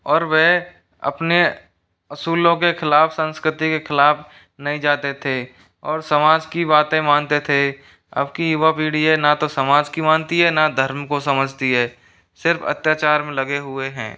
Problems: none marked